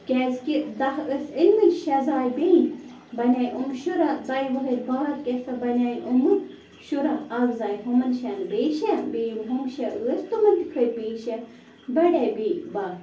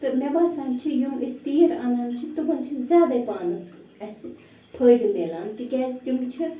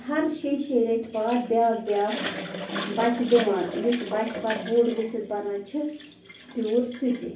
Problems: constant background noise